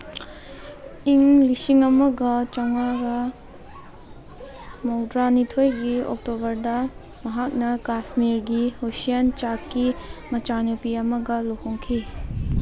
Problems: background conversations at intervals